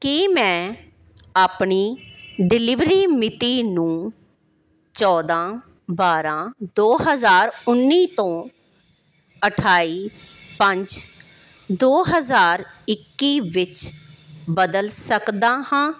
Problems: none marked